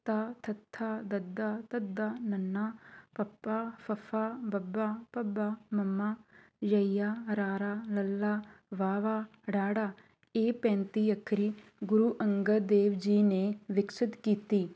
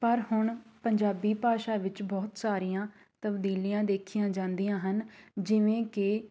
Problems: none marked